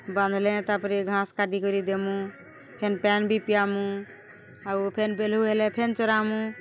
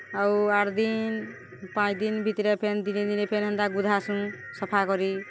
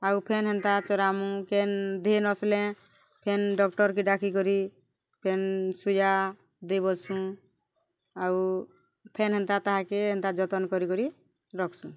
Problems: constant background noise